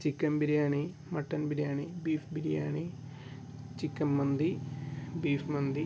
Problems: constant background noise